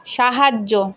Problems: continuous background conversations